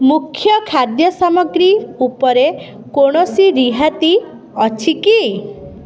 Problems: constant background noise